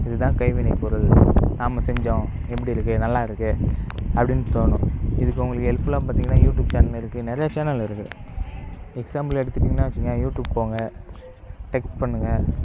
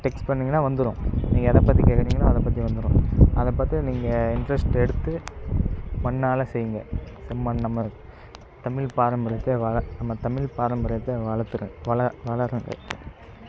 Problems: constant background noise